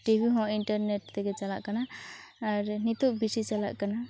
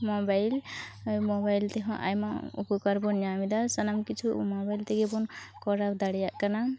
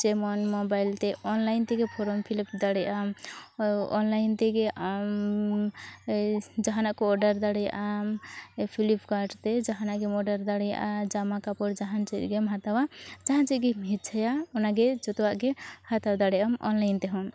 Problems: none marked